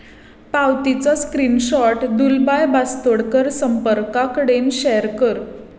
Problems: echo